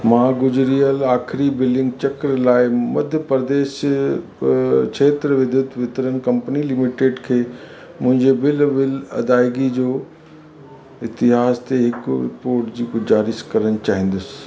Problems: constant background noise, echo